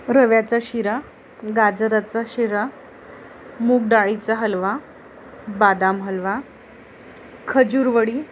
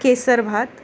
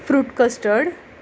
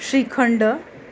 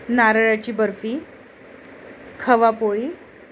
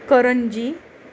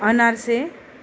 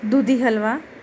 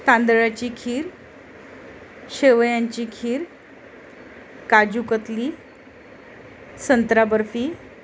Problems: constant background noise, continuous background conversations